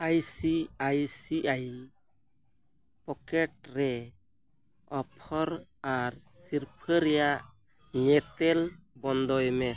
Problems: background sounds at intervals